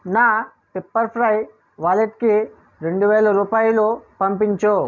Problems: none marked